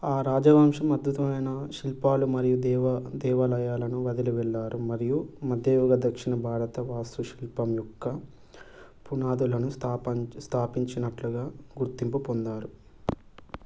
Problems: constant background noise